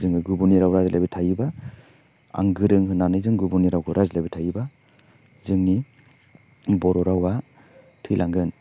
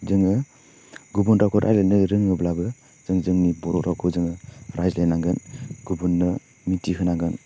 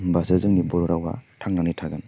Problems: none marked